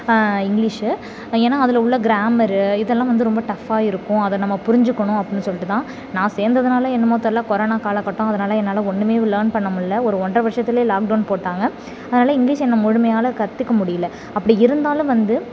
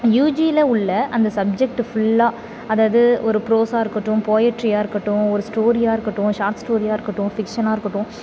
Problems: none marked